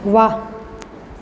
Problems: none marked